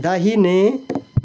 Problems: background conversations at intervals